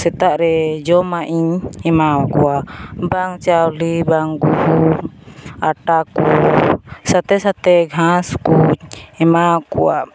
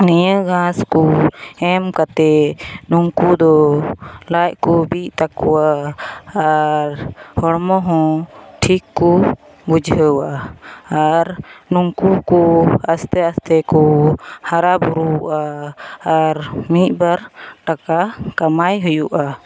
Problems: background sounds at intervals, background conversations at intervals